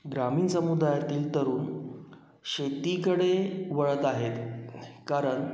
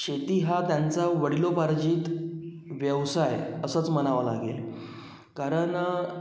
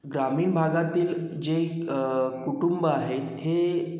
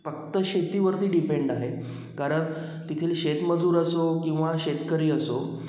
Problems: background sounds at intervals, echo